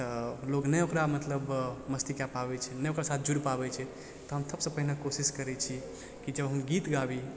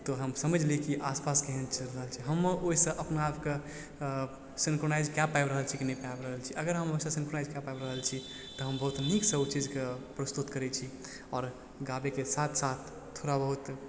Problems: background sounds at intervals, low volume